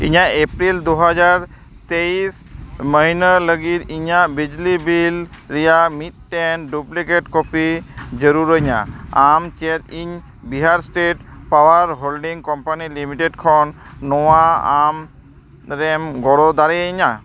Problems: background sounds at intervals